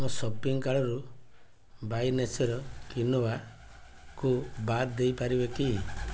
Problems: constant background noise, low volume